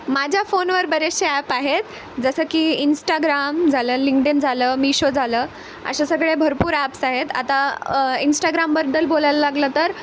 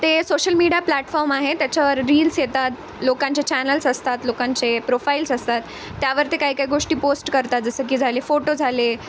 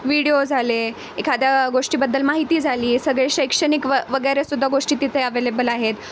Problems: constant background noise